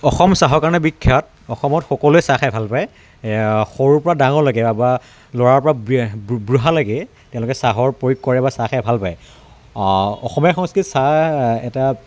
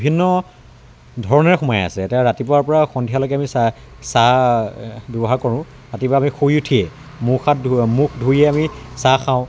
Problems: none marked